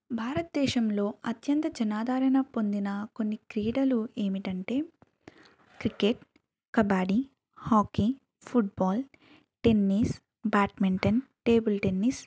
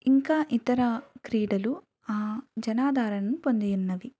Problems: background sounds at intervals, background conversations at intervals, low volume